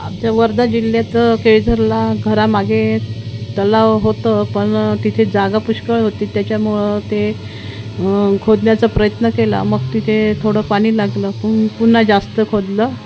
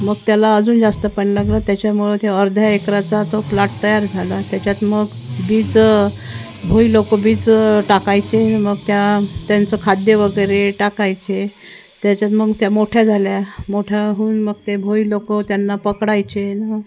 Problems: constant background noise, continuous background conversations